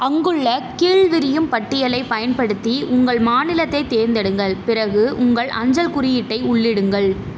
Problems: none marked